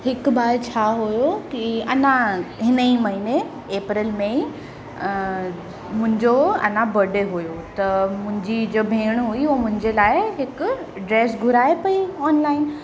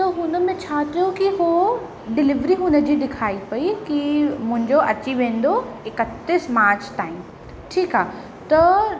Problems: constant background noise, echo